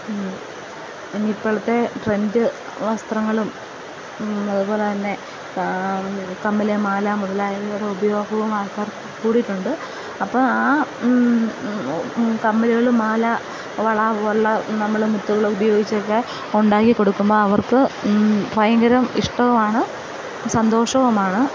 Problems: constant background noise, low volume